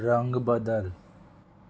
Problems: none marked